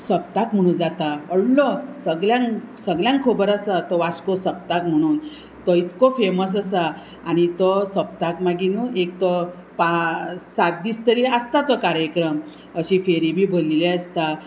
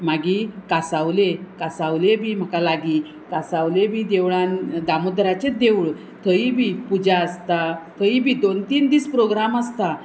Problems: constant background noise